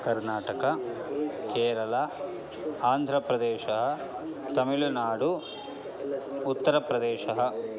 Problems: constant background noise, continuous background conversations